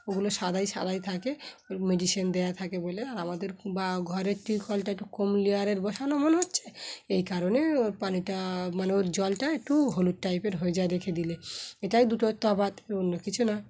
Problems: background sounds at intervals